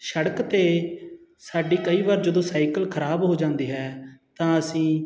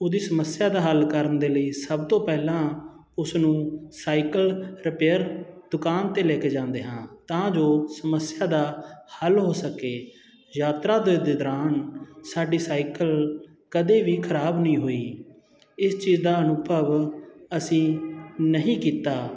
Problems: none marked